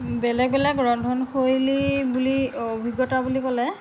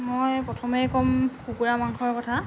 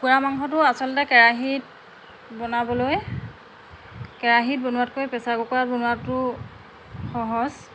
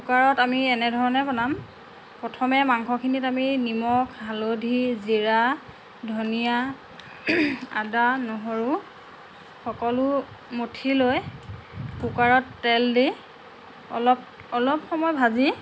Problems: background conversations at intervals